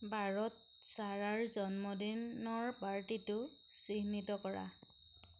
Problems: none marked